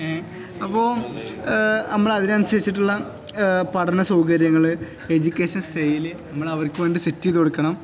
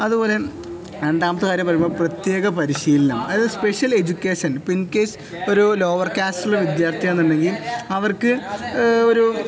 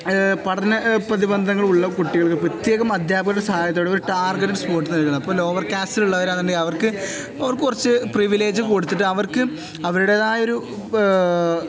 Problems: none marked